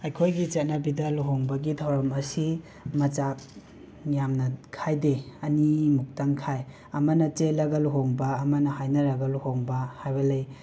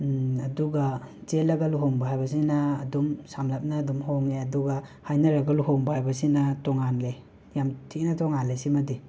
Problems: constant background noise